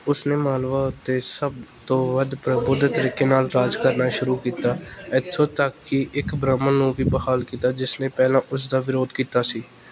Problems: background conversations at intervals